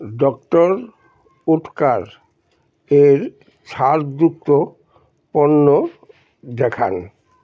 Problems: none marked